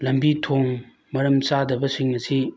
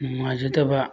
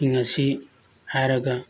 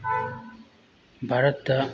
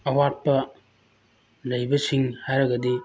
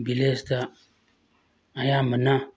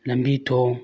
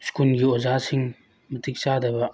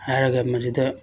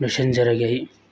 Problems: constant background noise